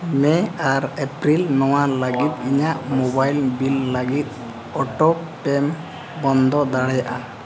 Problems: constant background noise